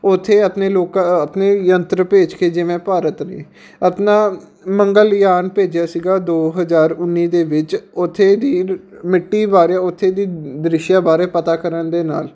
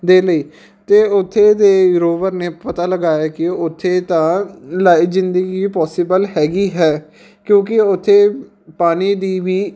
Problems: background sounds at intervals